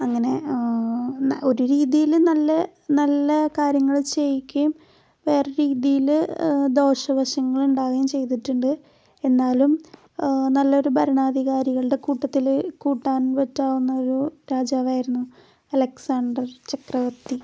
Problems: background sounds at intervals, low volume